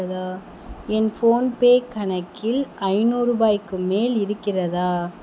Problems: constant background noise